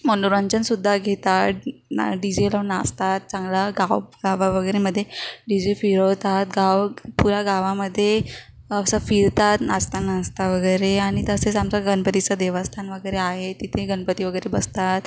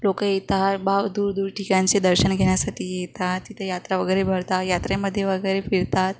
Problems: none marked